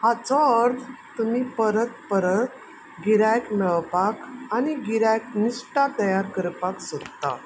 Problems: constant background noise